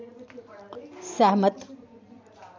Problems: constant background noise